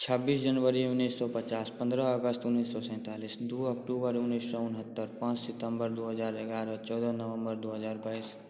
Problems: constant background noise